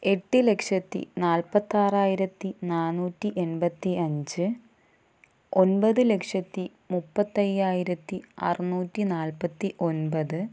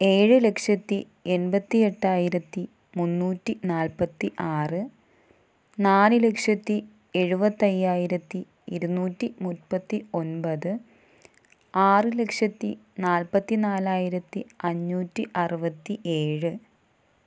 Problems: none marked